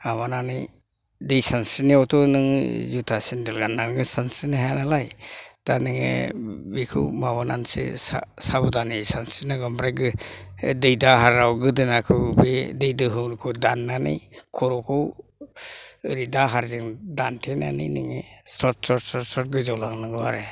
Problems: low volume